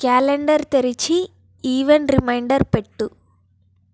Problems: none marked